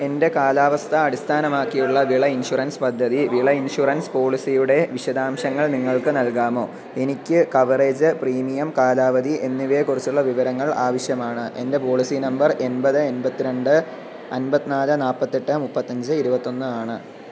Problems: constant background noise